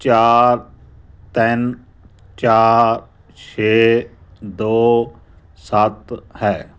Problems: background conversations at intervals